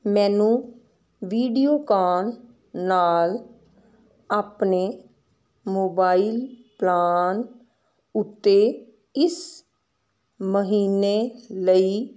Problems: constant background noise